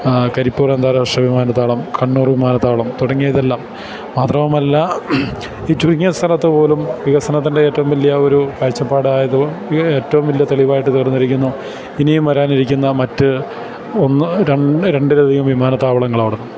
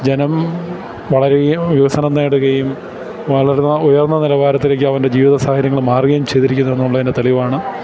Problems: constant background noise